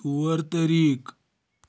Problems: background sounds at intervals